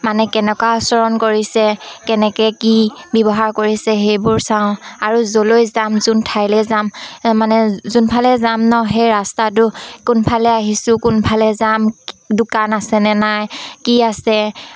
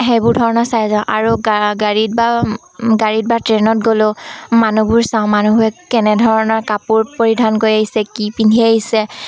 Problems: constant background noise, background conversations at intervals